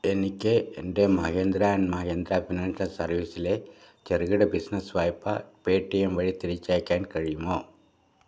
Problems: low volume